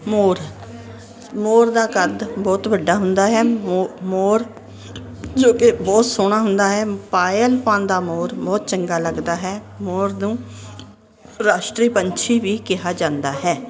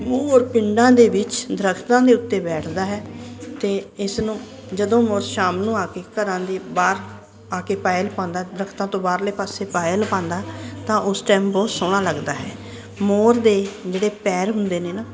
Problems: constant background noise